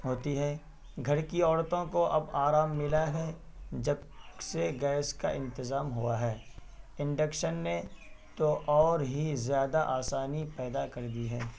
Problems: constant background noise